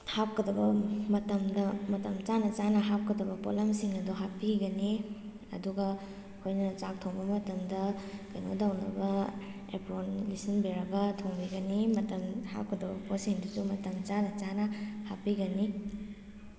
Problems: constant background noise